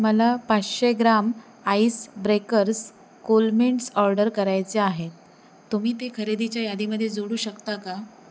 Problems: none marked